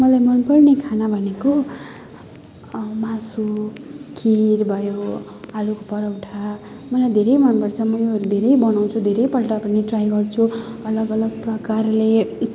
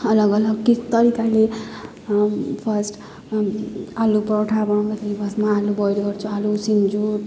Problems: none marked